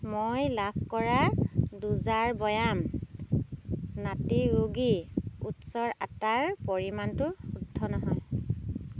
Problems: constant background noise